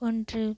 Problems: low volume